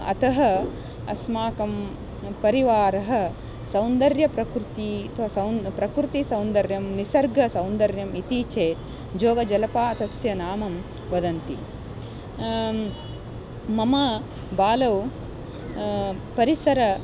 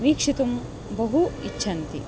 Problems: constant background noise, continuous background conversations